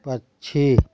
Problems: background sounds at intervals